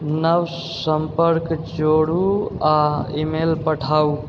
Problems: background sounds at intervals